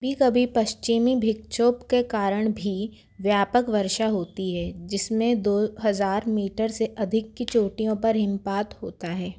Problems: background sounds at intervals